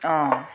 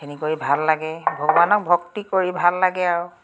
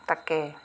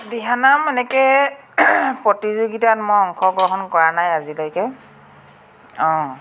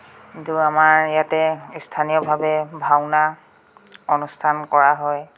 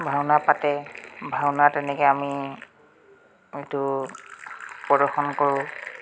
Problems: none marked